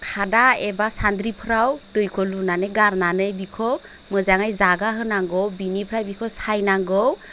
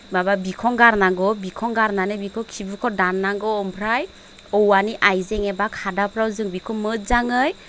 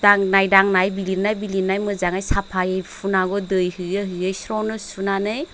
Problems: constant background noise